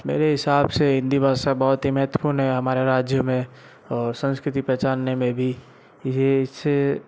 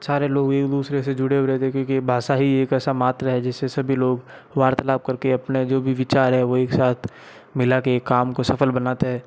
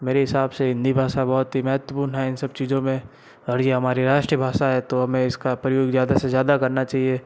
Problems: background sounds at intervals